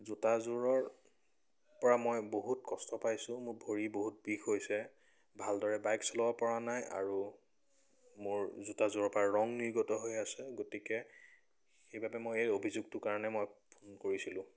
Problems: none marked